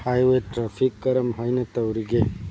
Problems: low volume